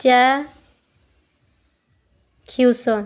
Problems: none marked